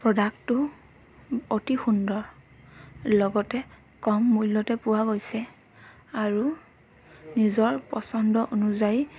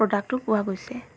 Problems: background sounds at intervals